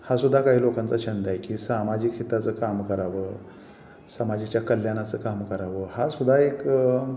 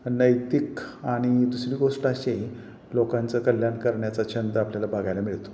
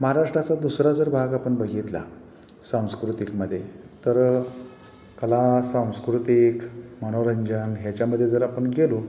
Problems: constant background noise, background conversations at intervals